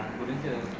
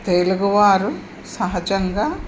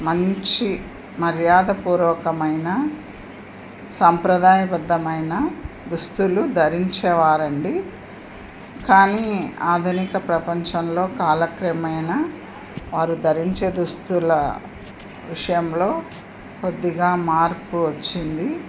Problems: constant background noise